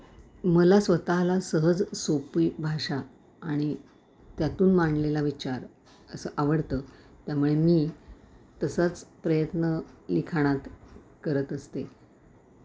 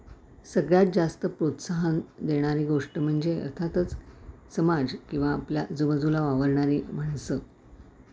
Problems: background sounds at intervals